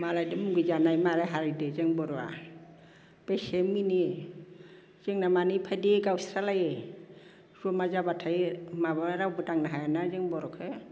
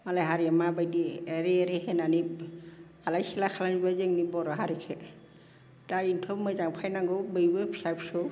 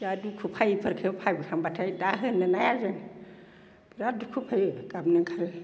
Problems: none marked